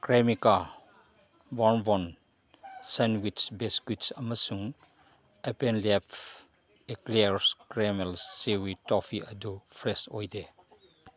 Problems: background sounds at intervals